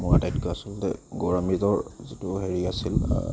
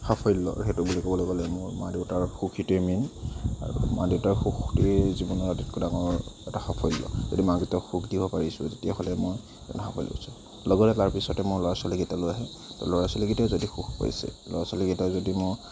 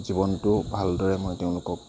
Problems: constant background noise, background conversations at intervals